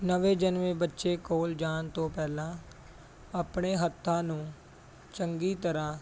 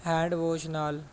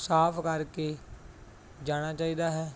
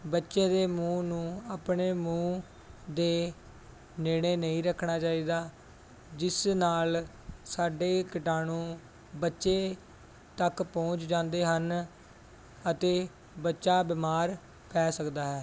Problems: background sounds at intervals